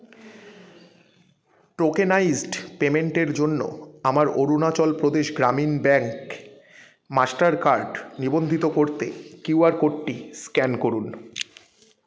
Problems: continuous background conversations